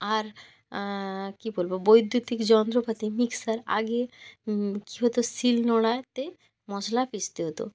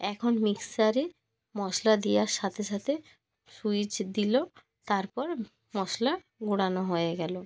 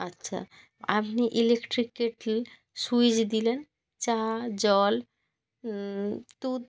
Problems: none marked